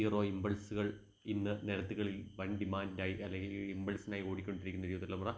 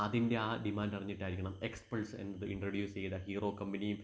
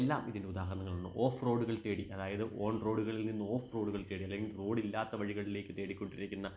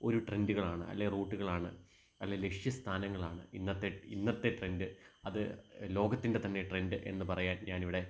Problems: background sounds at intervals